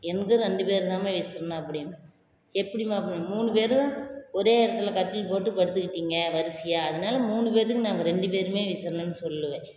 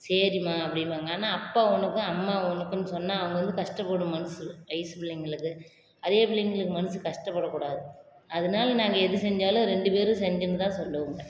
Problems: none marked